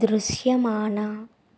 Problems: none marked